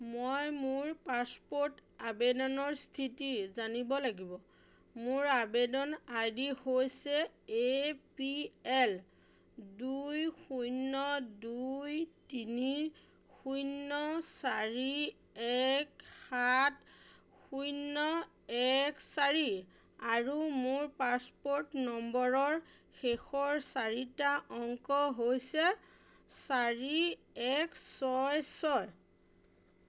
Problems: none marked